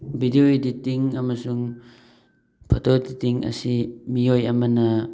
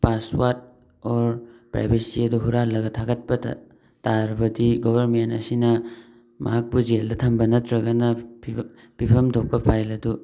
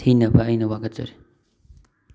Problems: background sounds at intervals